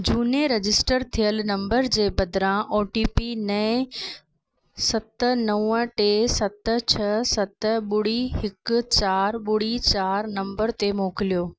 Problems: background sounds at intervals